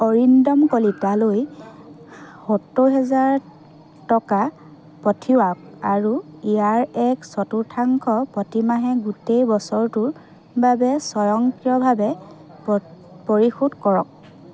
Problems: constant background noise, background conversations at intervals